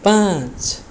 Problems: background sounds at intervals